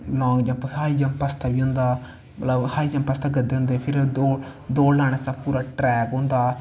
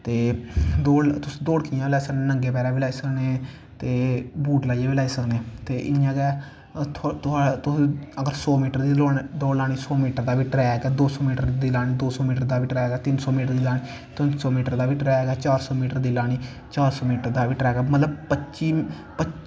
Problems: constant background noise